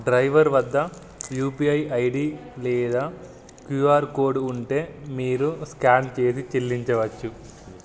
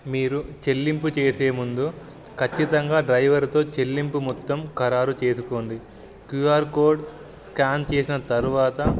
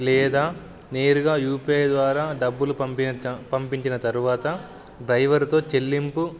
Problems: background sounds at intervals